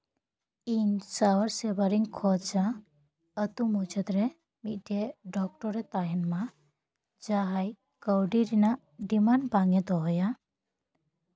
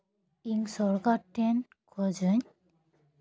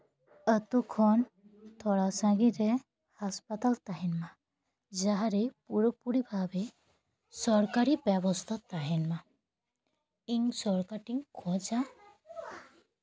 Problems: background conversations at intervals